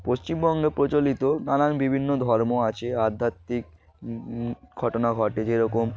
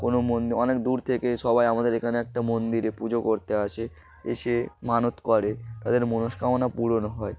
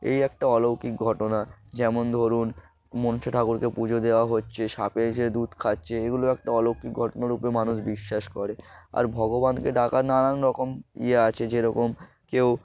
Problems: background sounds at intervals